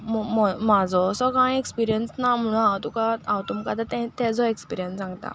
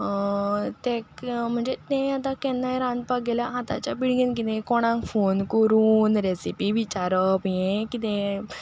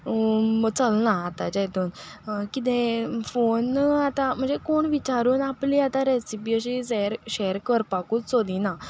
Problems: none marked